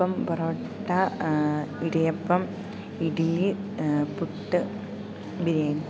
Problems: background sounds at intervals, low volume